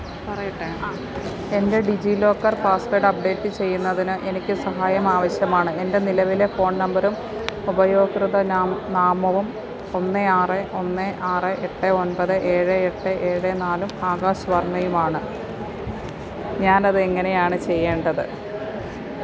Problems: constant background noise, background conversations at intervals